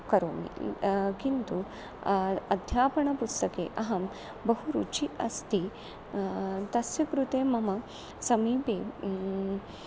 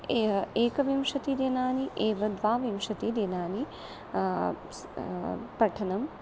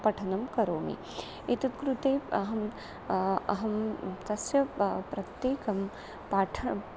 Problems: constant background noise